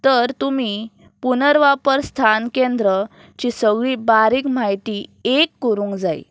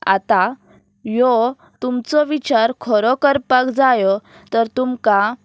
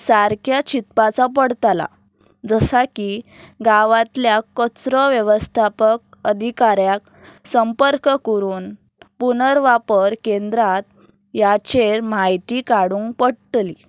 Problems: none marked